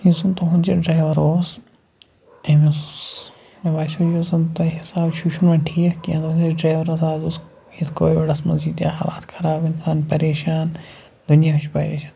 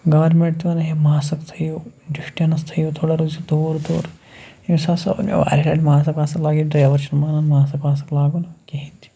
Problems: constant background noise